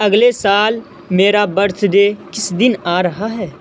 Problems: constant background noise